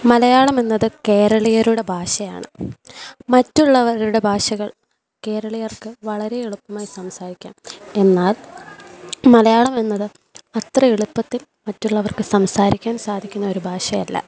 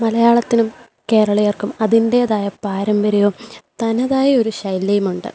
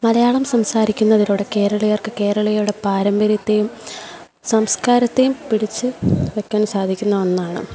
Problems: background sounds at intervals